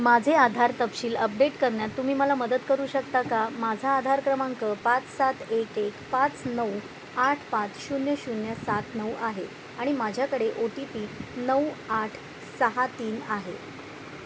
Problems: none marked